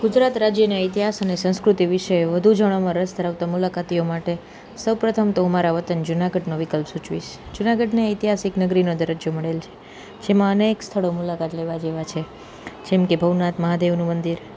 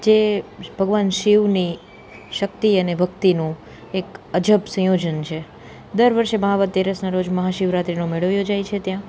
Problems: constant background noise